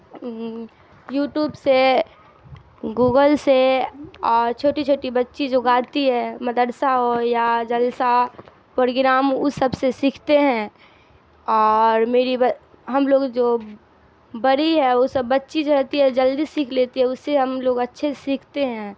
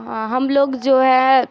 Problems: constant background noise